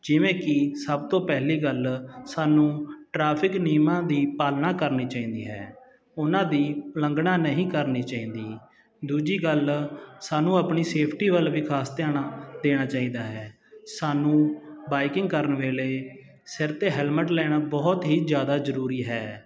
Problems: none marked